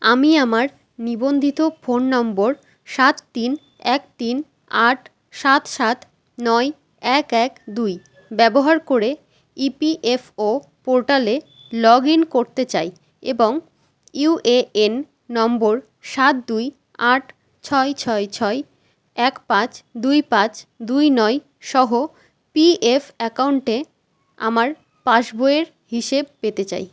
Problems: constant background noise